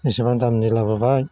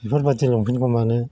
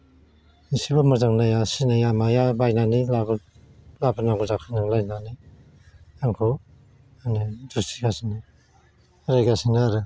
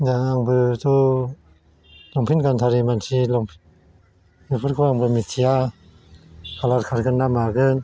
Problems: constant background noise